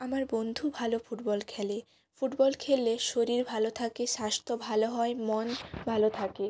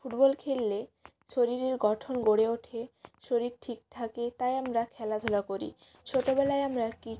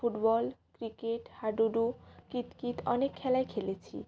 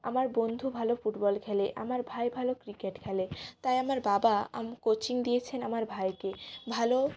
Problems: constant background noise